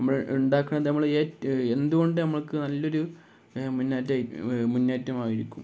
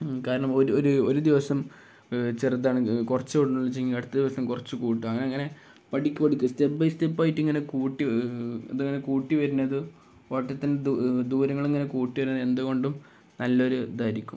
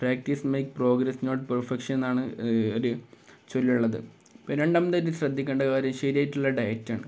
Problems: none marked